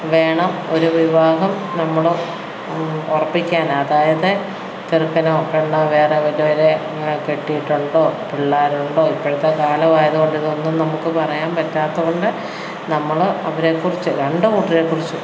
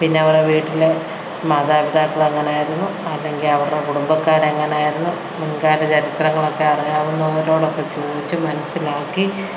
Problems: background sounds at intervals